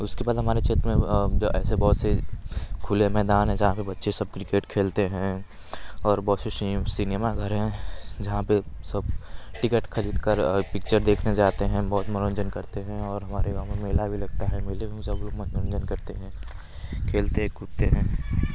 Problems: none marked